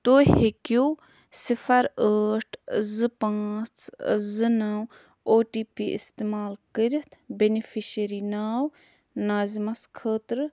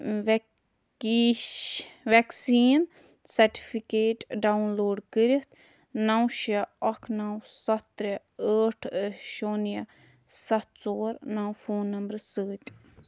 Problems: constant background noise